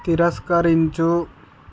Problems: none marked